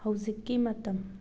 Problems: none marked